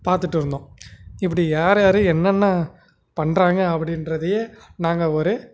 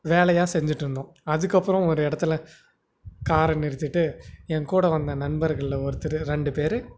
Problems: constant background noise